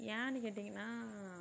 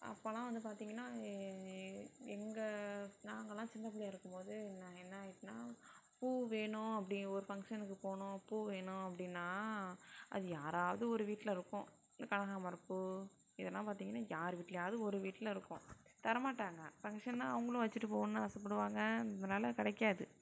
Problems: none marked